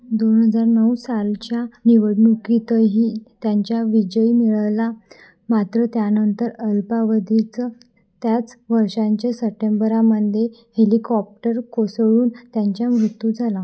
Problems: none marked